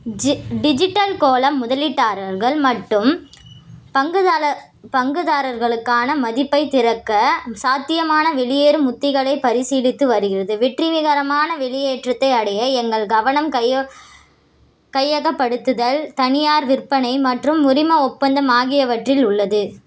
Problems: none marked